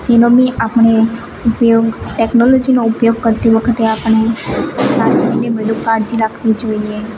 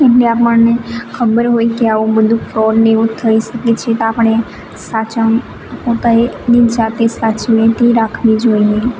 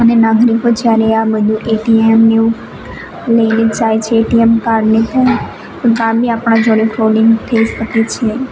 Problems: none marked